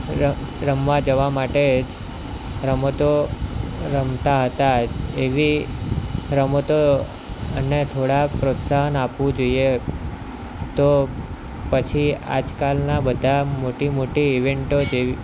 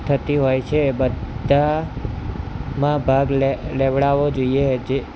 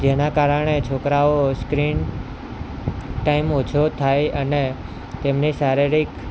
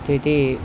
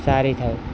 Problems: constant background noise